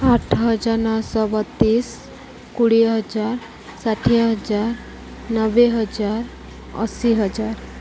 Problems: none marked